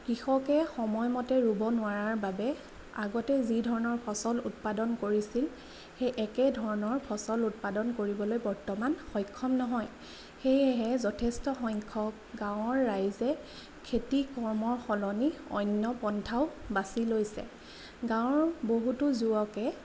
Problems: none marked